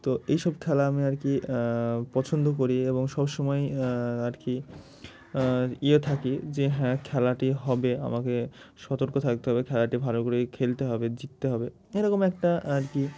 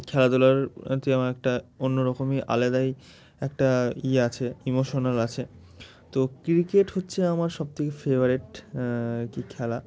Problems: constant background noise